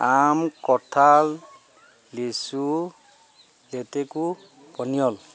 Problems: constant background noise